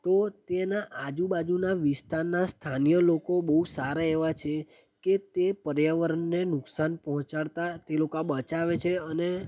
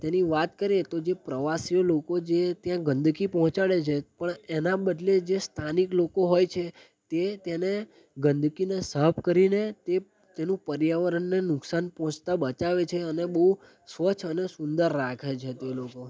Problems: background conversations at intervals